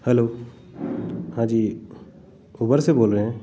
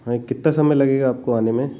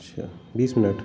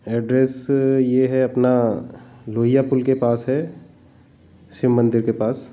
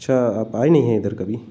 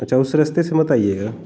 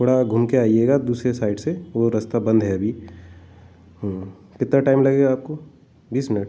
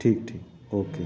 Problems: constant background noise